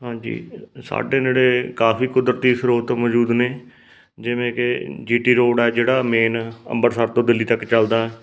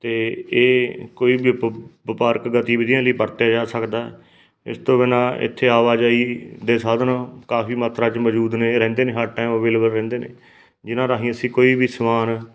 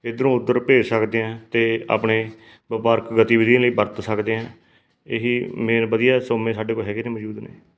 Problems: background sounds at intervals